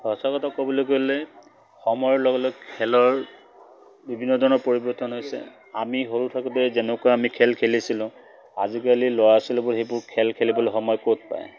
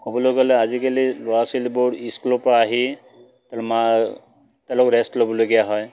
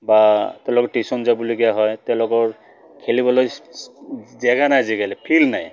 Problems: none marked